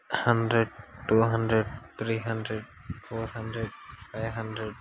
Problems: constant background noise, low volume